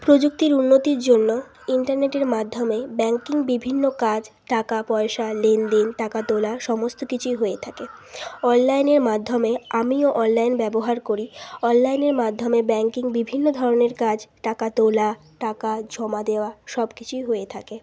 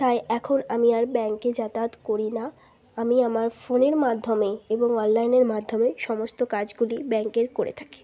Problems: none marked